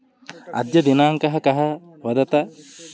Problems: constant background noise, background conversations at intervals